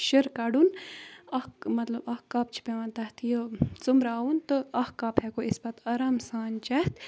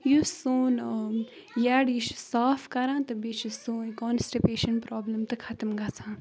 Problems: background sounds at intervals